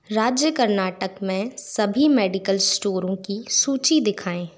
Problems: constant background noise